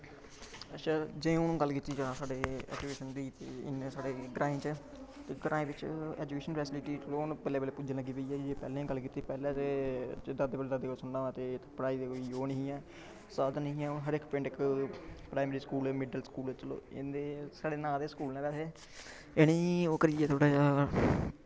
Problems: none marked